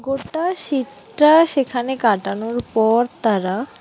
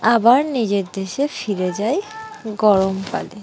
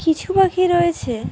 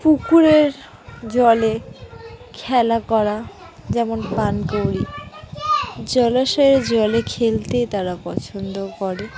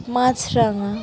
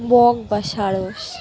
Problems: background sounds at intervals, continuous background conversations